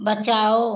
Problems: constant background noise